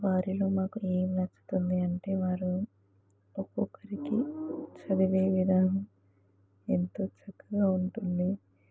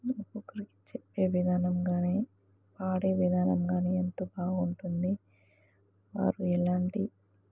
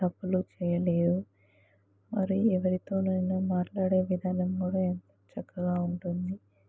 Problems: background conversations at intervals